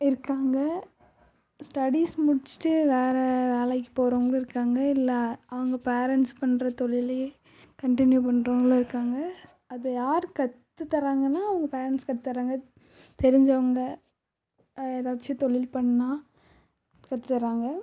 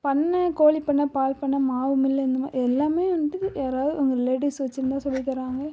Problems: low volume